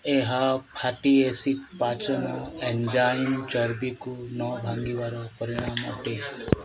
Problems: continuous background conversations